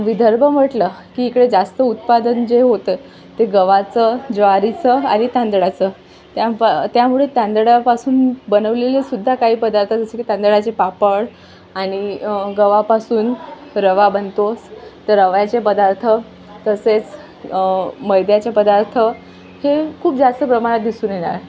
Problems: constant background noise, background conversations at intervals